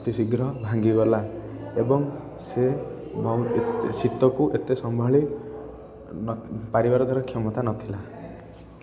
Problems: constant background noise, continuous background conversations